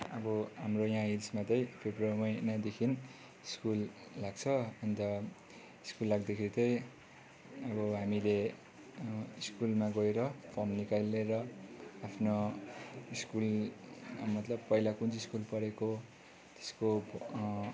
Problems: none marked